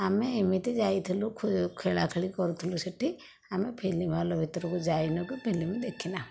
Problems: none marked